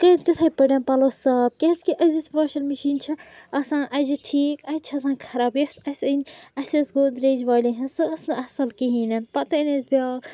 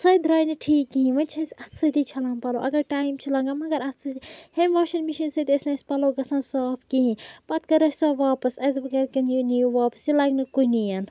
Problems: background sounds at intervals, background conversations at intervals